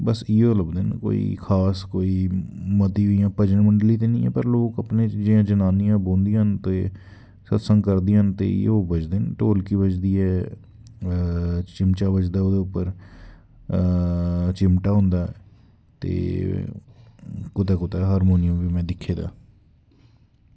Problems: background sounds at intervals